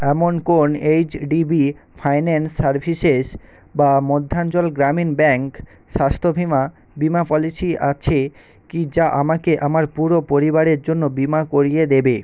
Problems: constant background noise